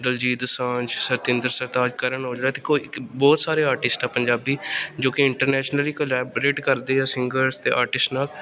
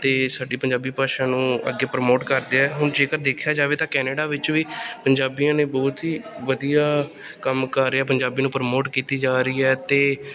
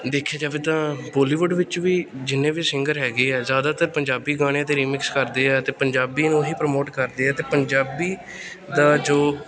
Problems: background sounds at intervals, background conversations at intervals